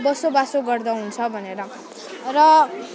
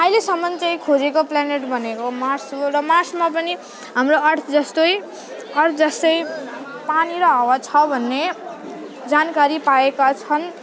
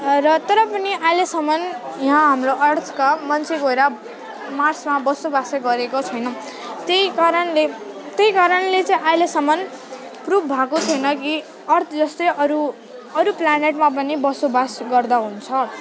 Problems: constant background noise, continuous background conversations